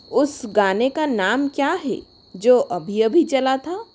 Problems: constant background noise